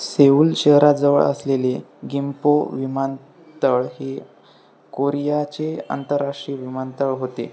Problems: none marked